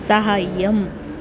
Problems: constant background noise